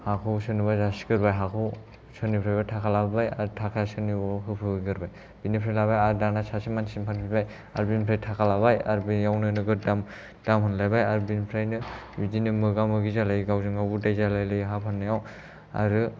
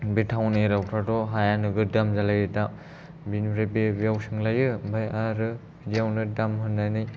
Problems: low volume